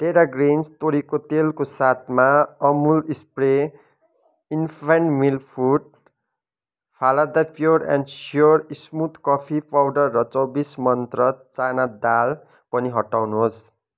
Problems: none marked